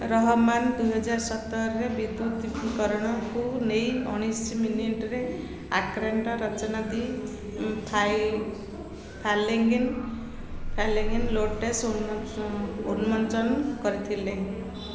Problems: constant background noise